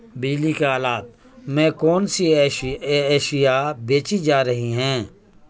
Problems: constant background noise